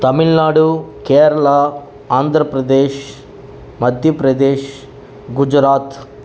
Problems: background sounds at intervals